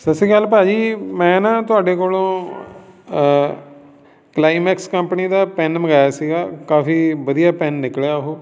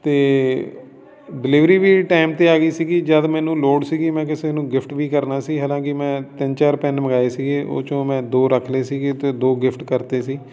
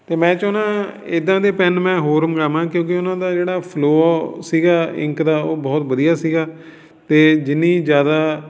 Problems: background sounds at intervals, background conversations at intervals